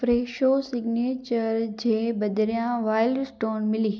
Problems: echo